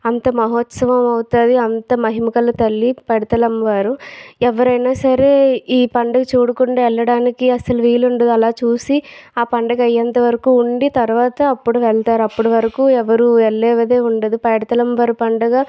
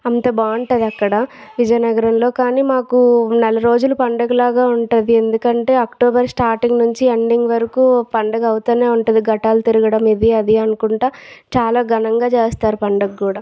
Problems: none marked